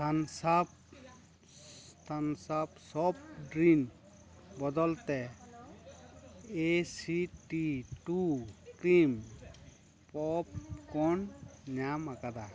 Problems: background conversations at intervals